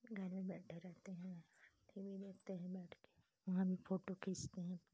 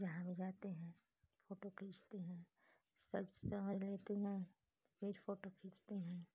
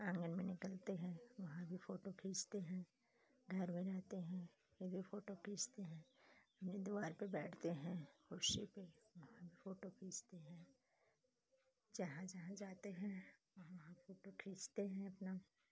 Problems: low volume